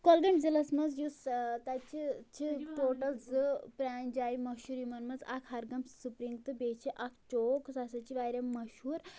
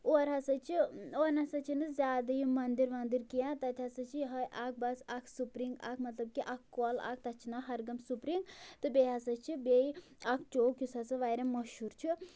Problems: none marked